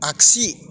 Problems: none marked